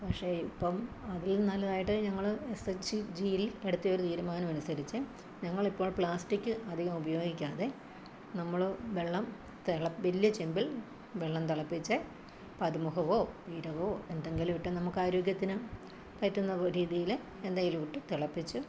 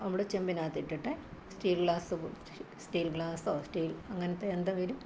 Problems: constant background noise, low volume